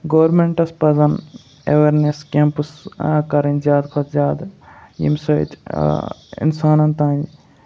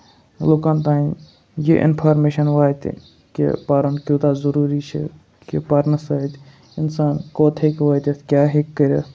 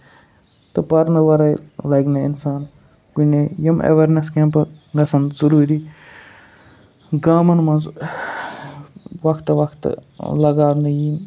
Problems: background sounds at intervals